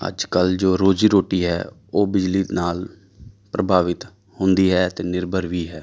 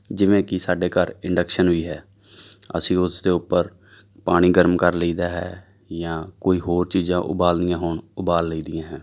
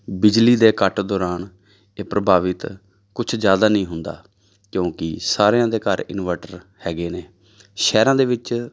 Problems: none marked